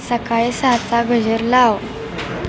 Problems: none marked